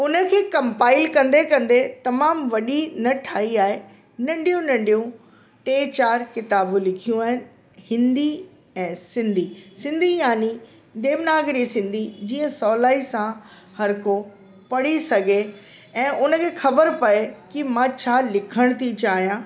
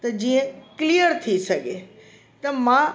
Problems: constant background noise